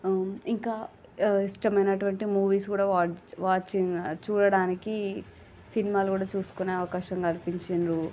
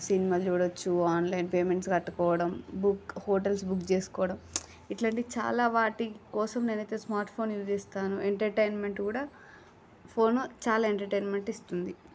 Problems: none marked